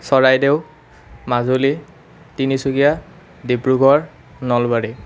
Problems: constant background noise